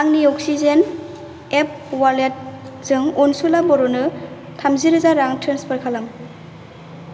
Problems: constant background noise